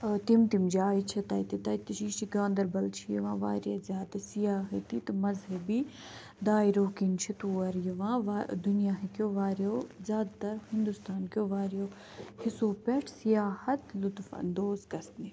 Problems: none marked